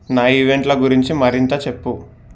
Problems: background sounds at intervals